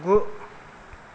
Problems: low volume